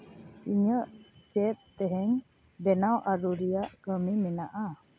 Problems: none marked